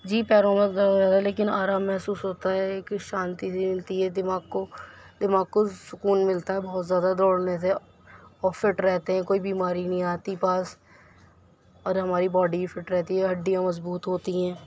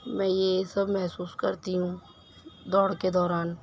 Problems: constant background noise